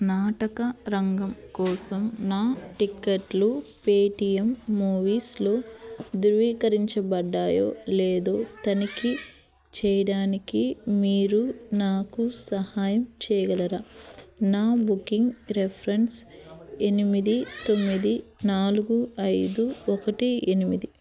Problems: constant background noise, background conversations at intervals